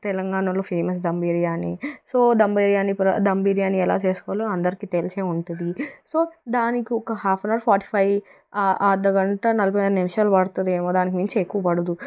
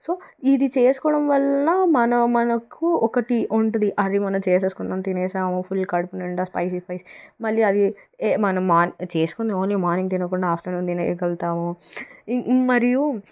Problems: background sounds at intervals